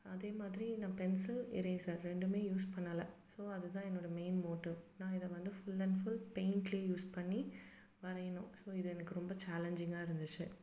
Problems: background sounds at intervals